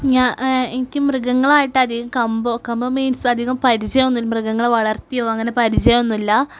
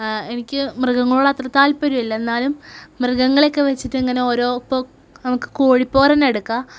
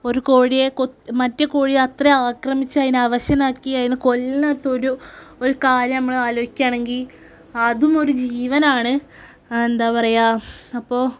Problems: none marked